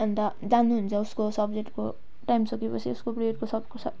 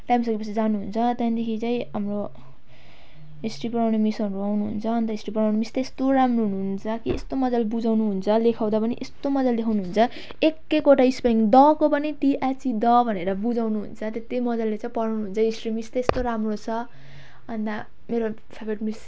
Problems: background sounds at intervals